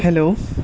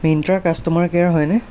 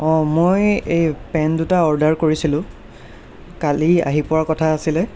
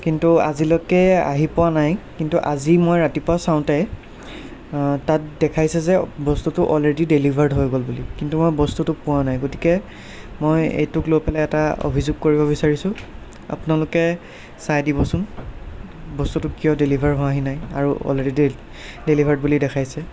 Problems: background sounds at intervals